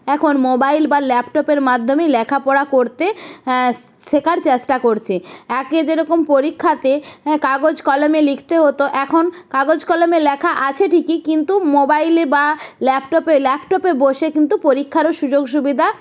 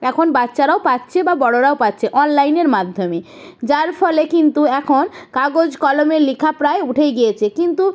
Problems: background sounds at intervals